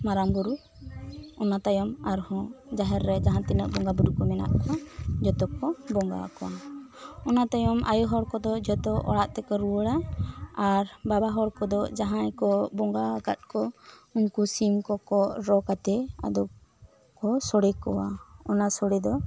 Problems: none marked